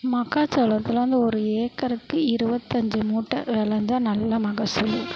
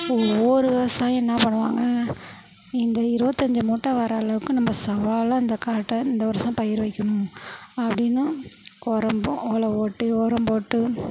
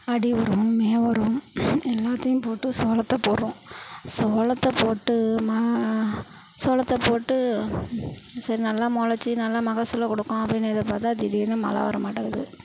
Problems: constant background noise